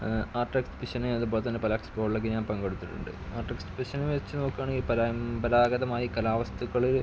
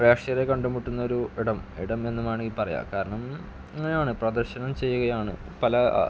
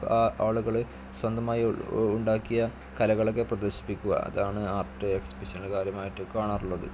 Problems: background sounds at intervals, low volume